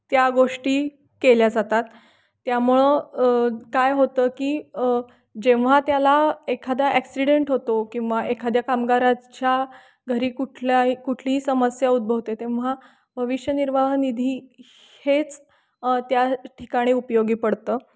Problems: background sounds at intervals